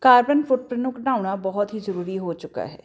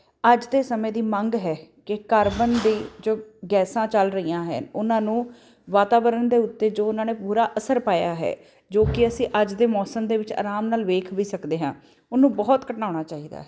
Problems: constant background noise